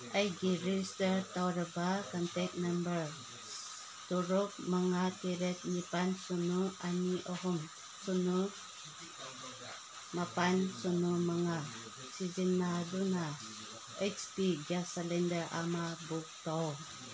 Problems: constant background noise